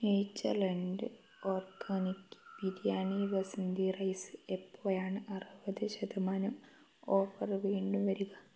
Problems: low volume